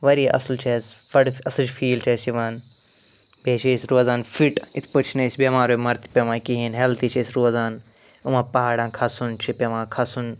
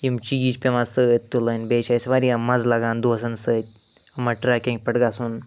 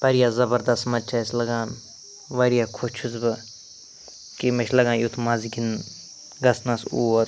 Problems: constant background noise